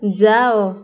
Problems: constant background noise